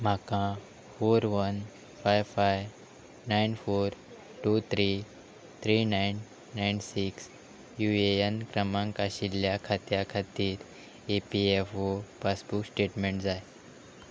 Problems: background sounds at intervals